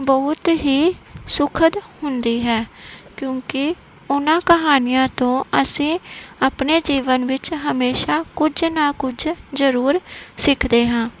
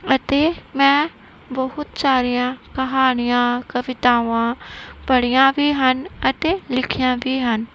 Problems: none marked